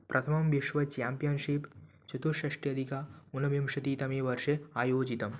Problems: none marked